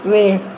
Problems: constant background noise